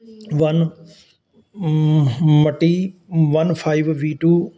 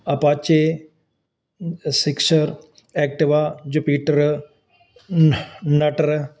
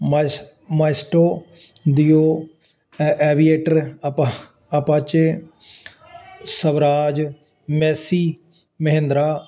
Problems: none marked